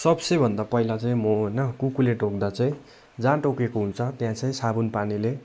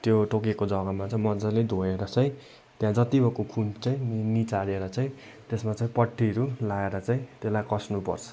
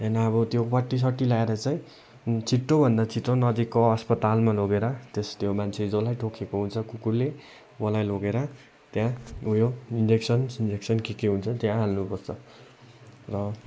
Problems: none marked